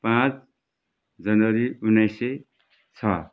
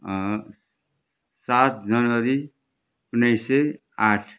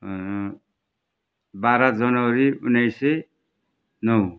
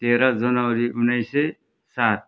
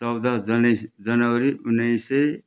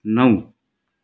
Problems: background sounds at intervals